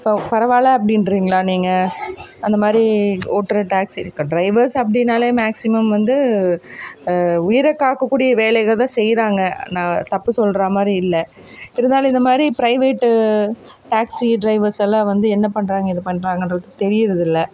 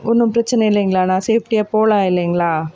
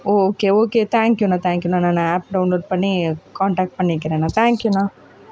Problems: none marked